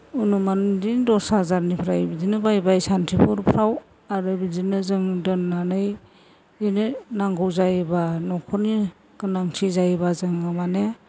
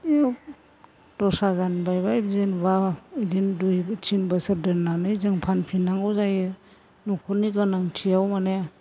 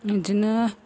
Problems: constant background noise